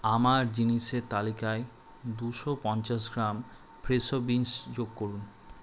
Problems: constant background noise